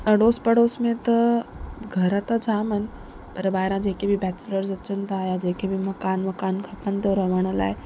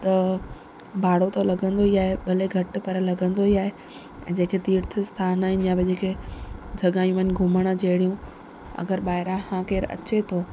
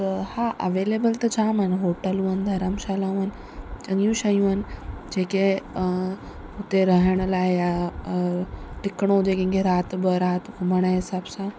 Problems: constant background noise